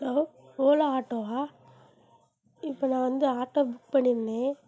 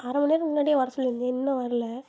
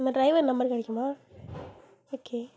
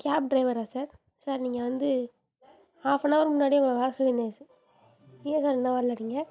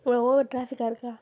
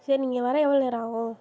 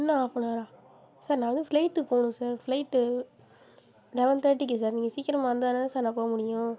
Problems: constant background noise